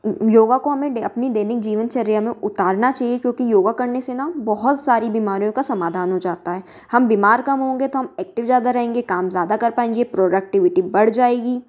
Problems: none marked